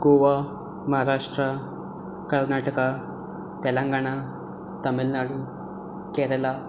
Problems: constant background noise